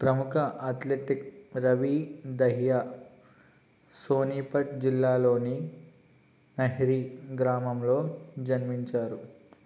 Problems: constant background noise